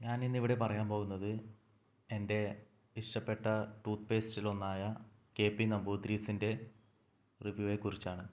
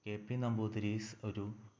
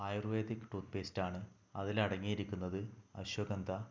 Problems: low volume